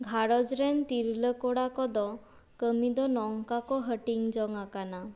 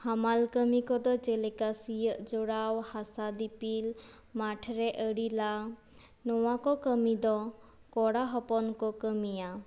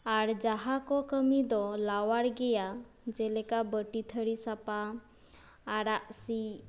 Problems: background sounds at intervals